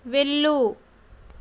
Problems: constant background noise